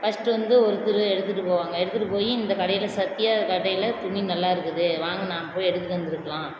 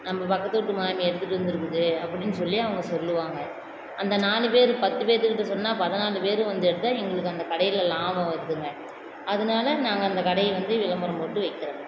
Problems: constant background noise